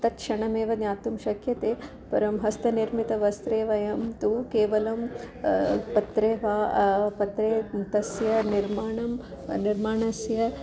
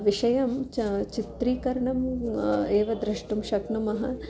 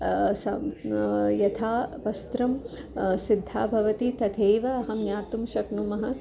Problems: constant background noise